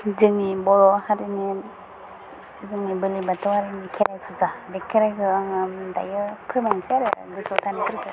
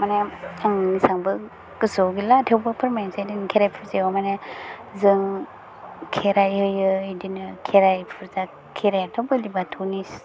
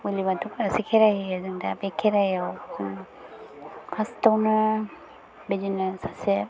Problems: low volume